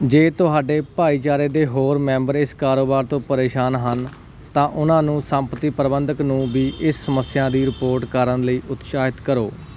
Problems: none marked